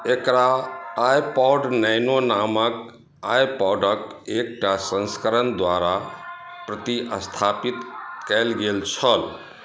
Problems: background sounds at intervals